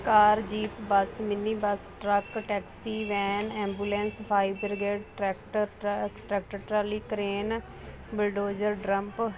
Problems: constant background noise, background conversations at intervals